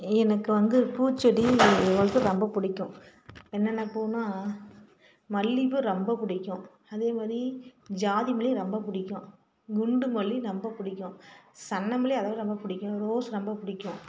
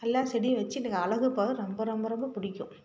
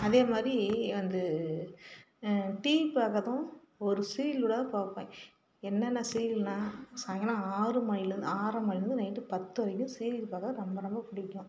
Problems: constant background noise